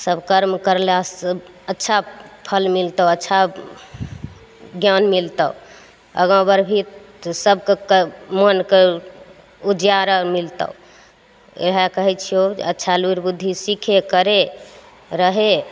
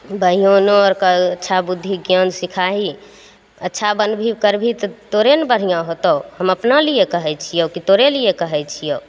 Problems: none marked